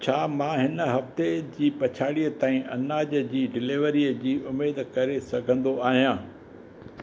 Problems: constant background noise